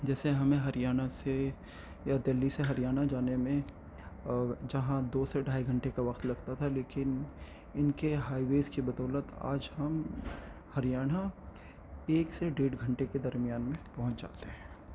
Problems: constant background noise